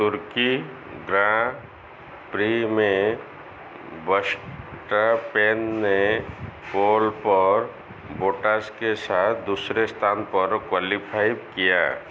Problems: none marked